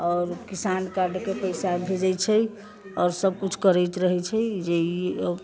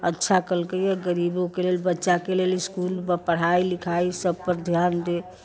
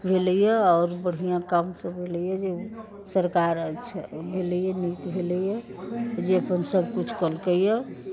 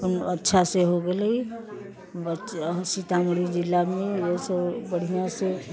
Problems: constant background noise